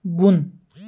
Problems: none marked